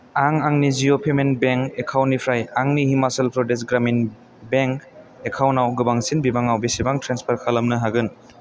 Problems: none marked